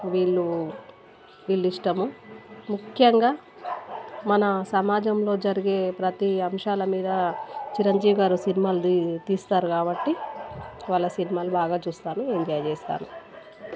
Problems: background sounds at intervals